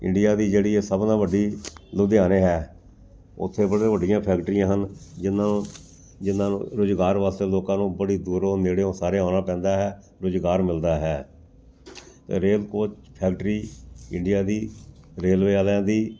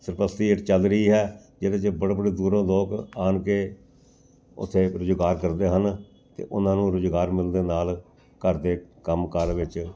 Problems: background sounds at intervals